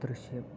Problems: low volume